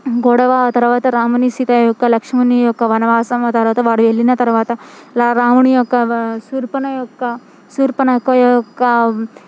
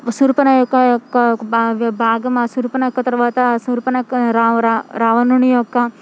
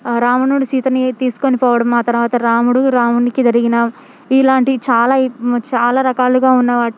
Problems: constant background noise